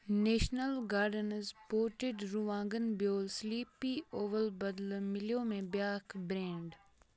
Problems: continuous background conversations